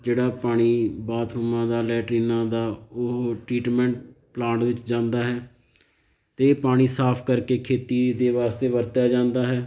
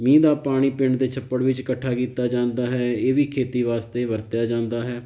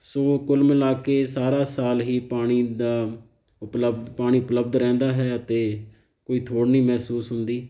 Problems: background sounds at intervals